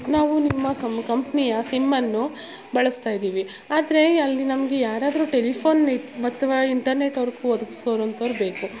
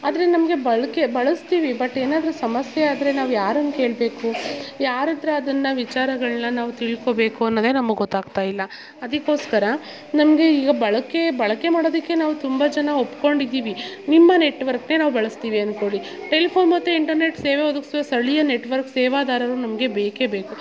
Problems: background sounds at intervals